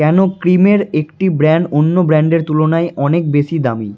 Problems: background sounds at intervals